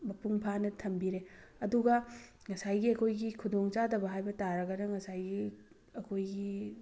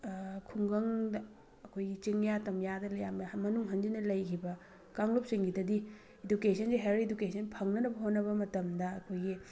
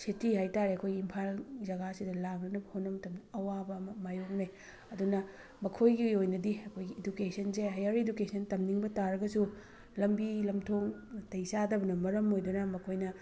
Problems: background sounds at intervals